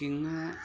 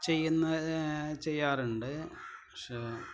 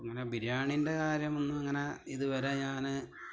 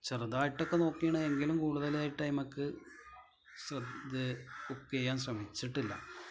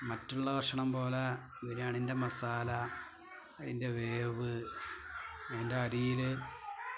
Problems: low volume